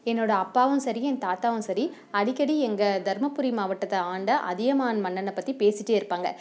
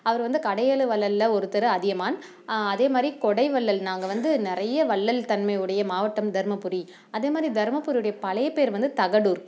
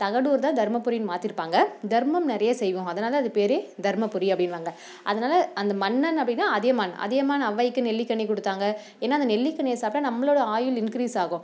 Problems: none marked